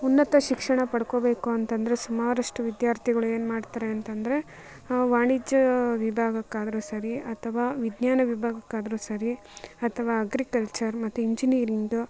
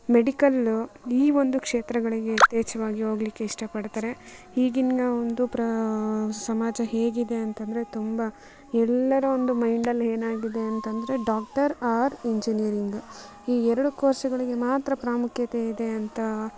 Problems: background sounds at intervals